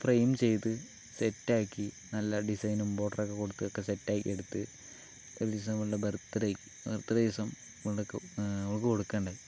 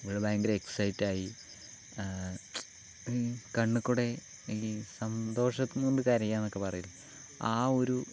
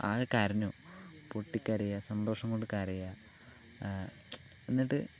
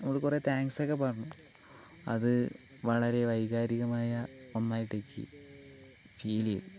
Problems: low volume